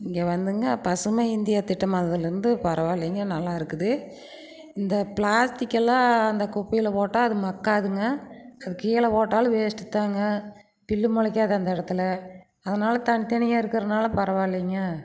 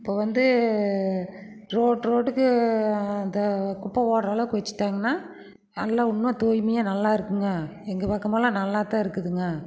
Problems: background sounds at intervals